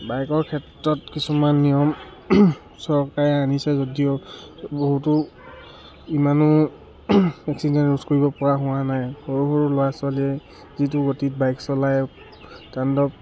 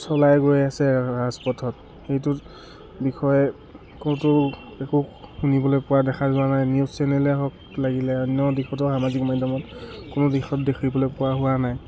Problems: none marked